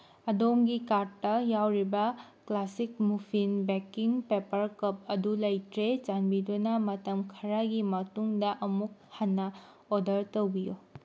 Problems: none marked